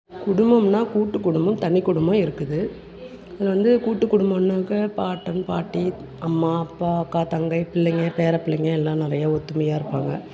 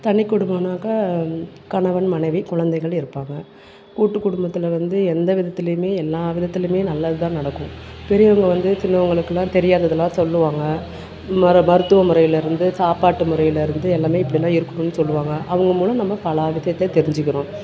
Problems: background sounds at intervals